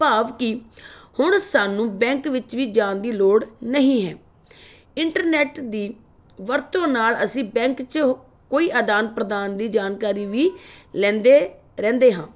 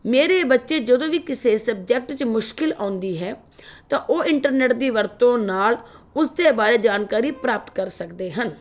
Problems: constant background noise